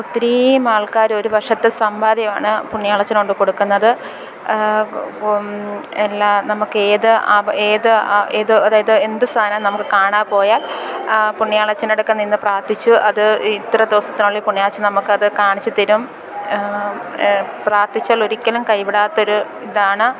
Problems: constant background noise, background conversations at intervals